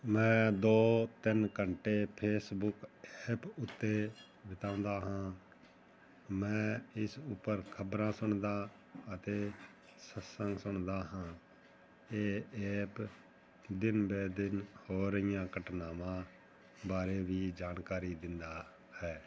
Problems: none marked